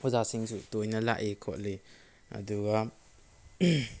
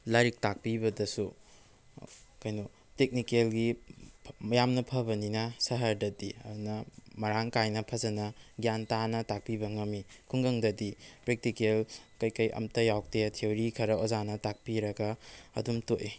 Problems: none marked